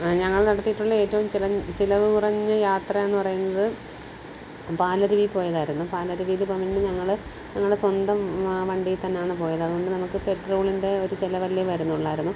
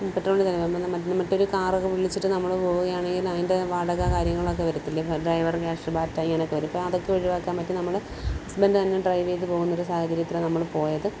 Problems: constant background noise